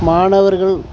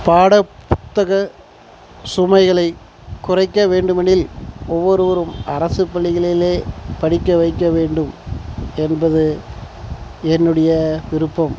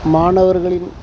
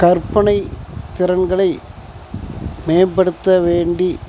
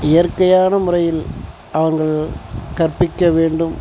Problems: constant background noise